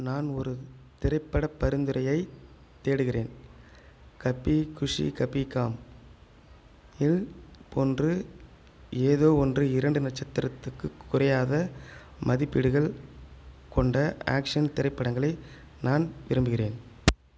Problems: background sounds at intervals